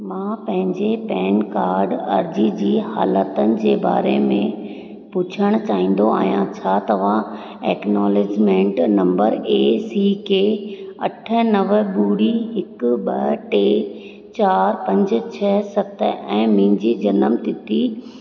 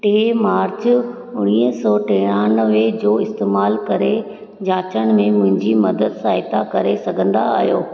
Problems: background sounds at intervals, echo